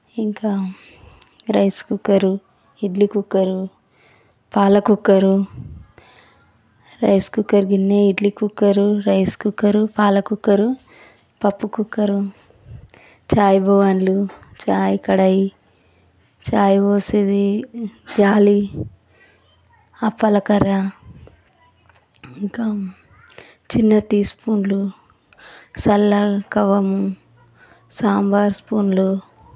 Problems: constant background noise, background conversations at intervals